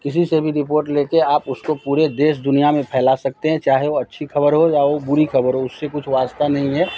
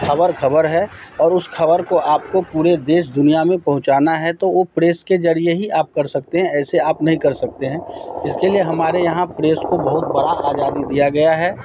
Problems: none marked